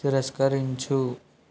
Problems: constant background noise